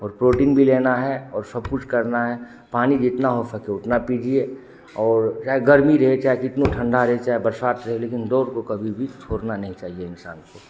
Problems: constant background noise